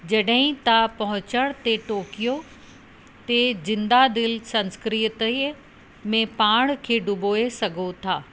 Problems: constant background noise